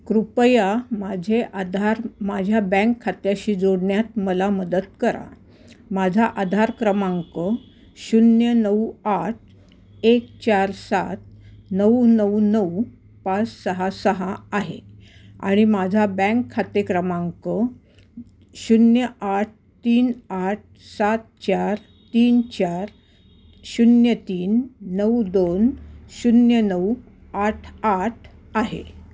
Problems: background sounds at intervals